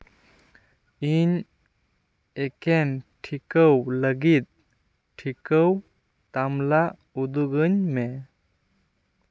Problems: none marked